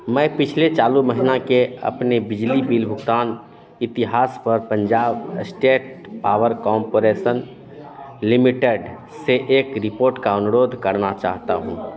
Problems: constant background noise, continuous background conversations